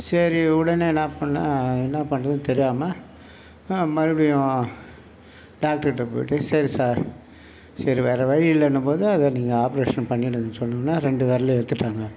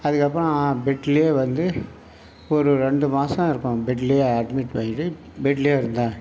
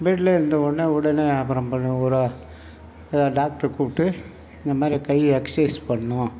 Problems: none marked